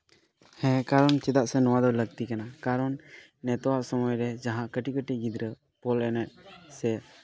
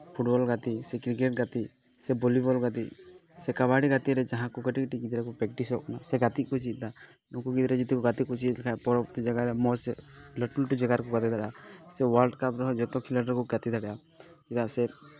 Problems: background conversations at intervals